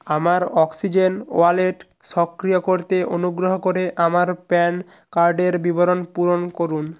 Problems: none marked